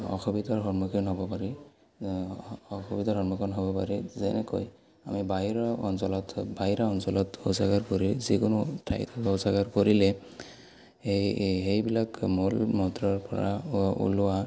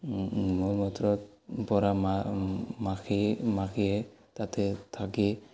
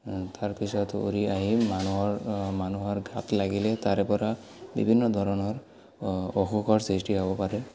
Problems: none marked